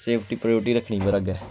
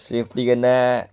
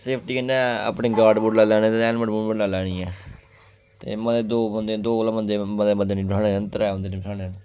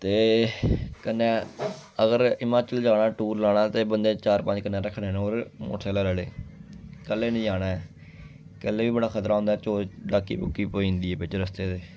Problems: constant background noise